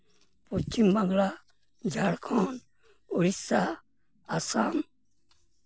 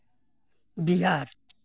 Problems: background sounds at intervals